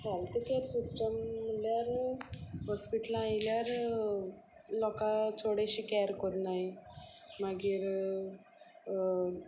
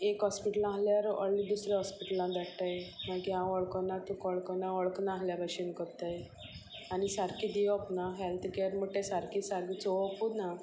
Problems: constant background noise